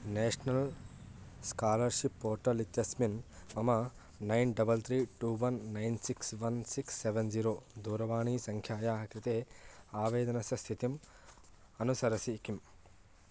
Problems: background sounds at intervals